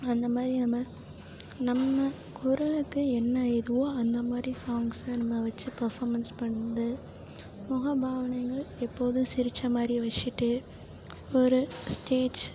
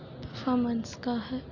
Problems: low volume